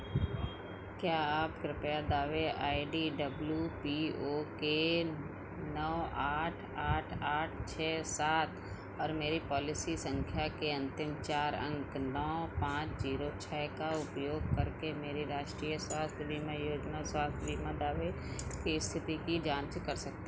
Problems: constant background noise